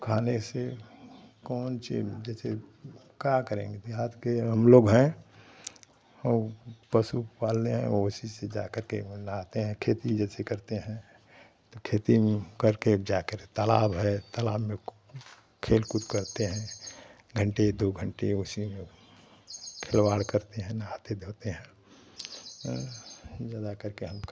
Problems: constant background noise, continuous background conversations